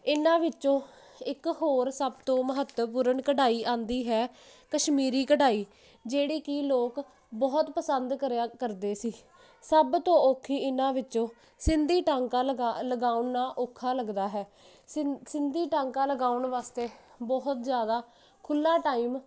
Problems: none marked